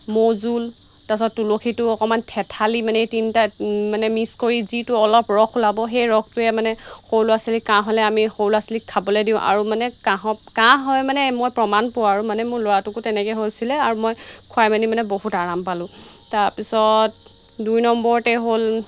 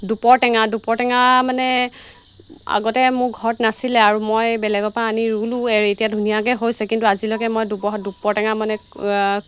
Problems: constant background noise